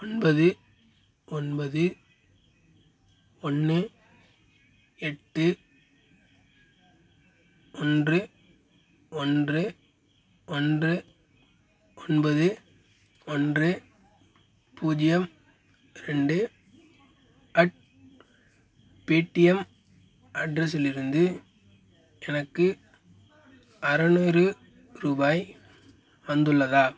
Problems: constant background noise